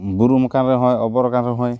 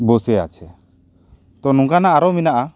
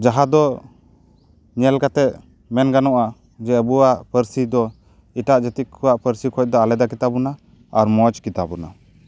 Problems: none marked